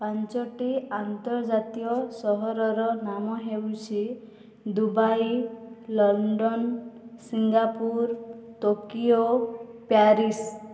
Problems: none marked